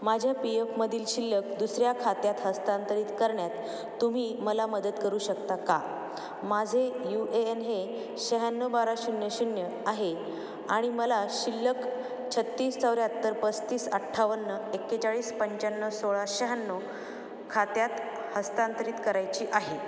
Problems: none marked